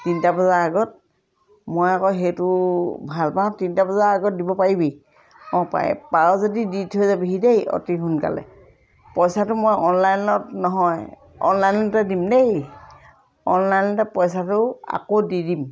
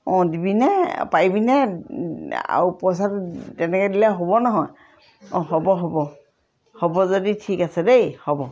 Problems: none marked